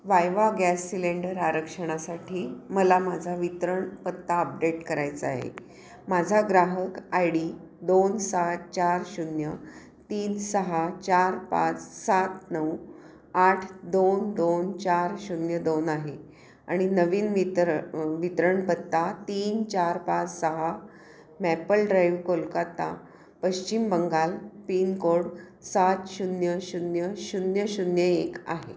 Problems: constant background noise, background conversations at intervals